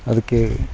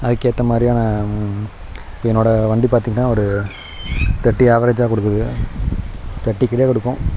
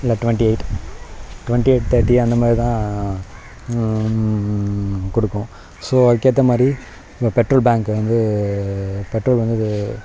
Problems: none marked